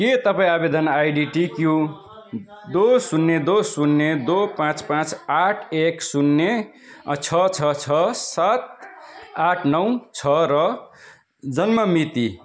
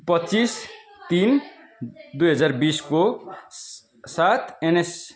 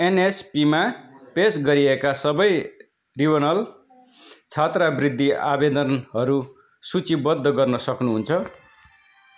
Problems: continuous background conversations